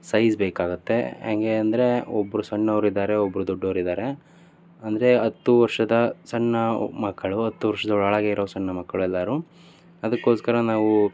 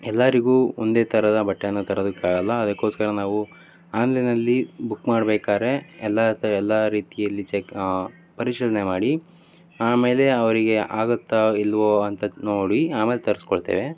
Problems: continuous background conversations